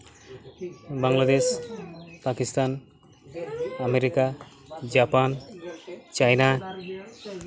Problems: constant background noise